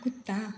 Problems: constant background noise